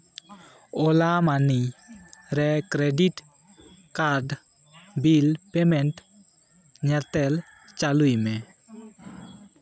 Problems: constant background noise, background conversations at intervals